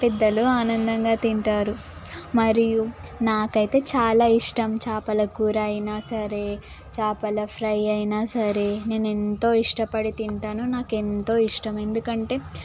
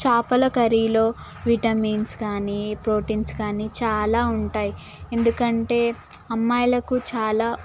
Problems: constant background noise, background conversations at intervals